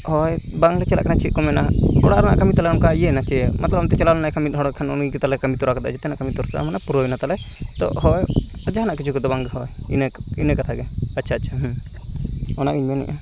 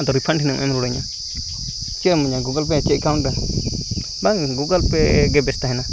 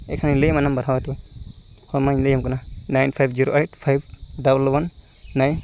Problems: constant background noise